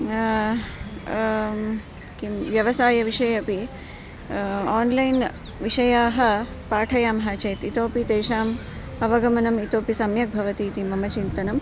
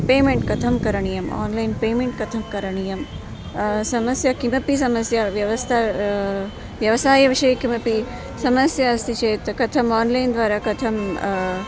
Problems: none marked